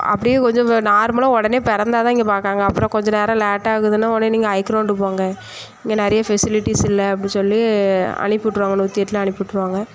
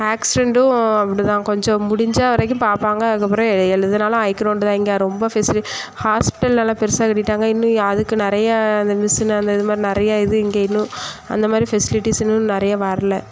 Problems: none marked